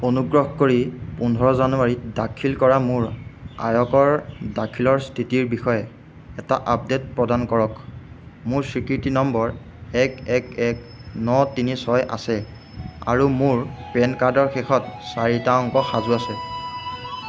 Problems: background sounds at intervals